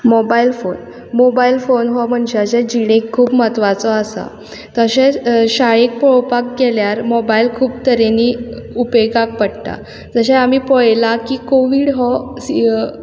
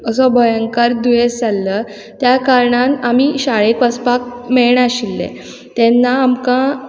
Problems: none marked